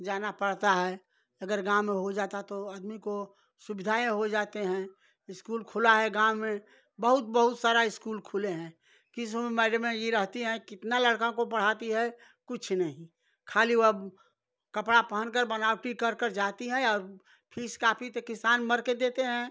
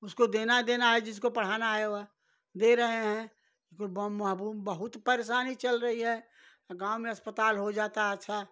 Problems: background sounds at intervals